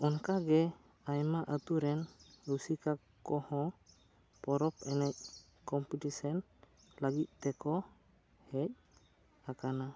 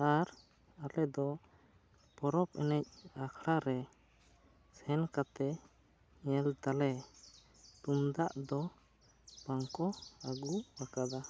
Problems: low volume